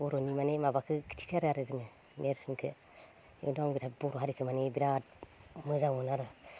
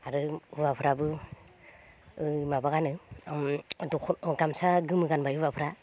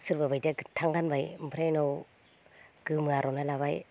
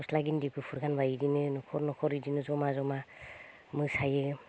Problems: none marked